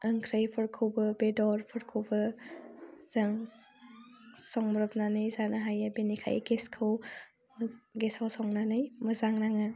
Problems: constant background noise